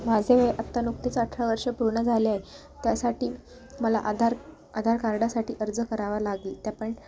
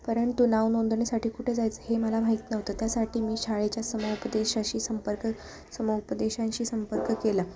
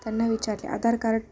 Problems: none marked